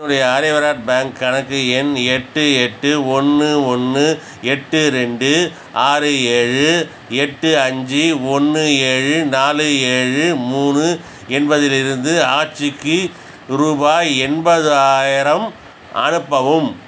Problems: none marked